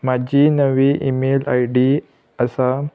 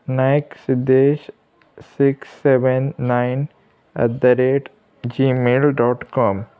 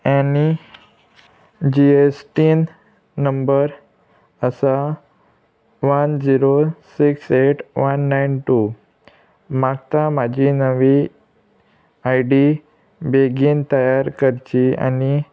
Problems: none marked